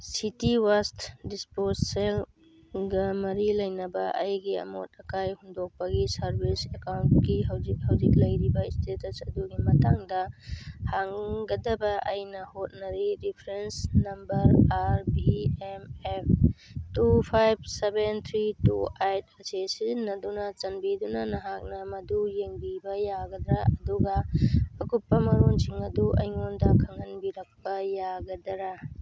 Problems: background sounds at intervals